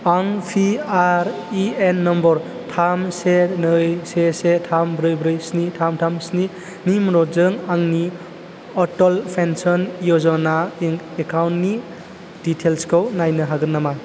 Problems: none marked